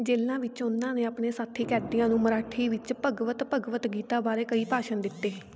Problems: none marked